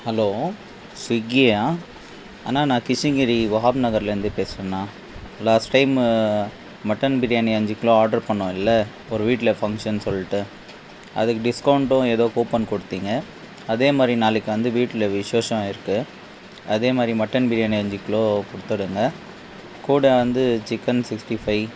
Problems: constant background noise